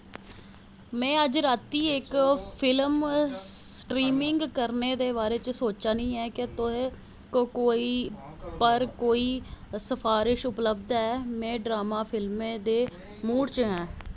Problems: constant background noise